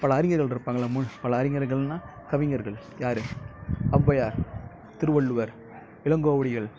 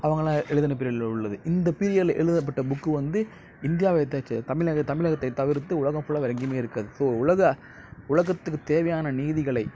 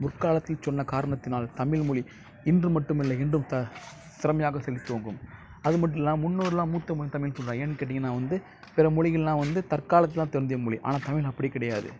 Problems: low volume